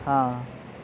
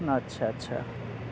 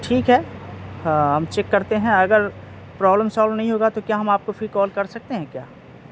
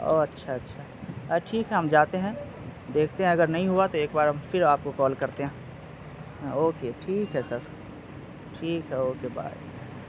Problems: constant background noise